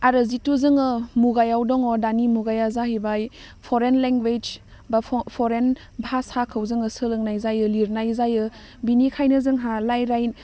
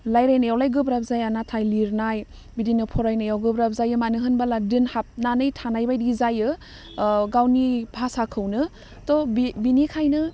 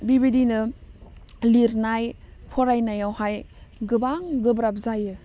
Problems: none marked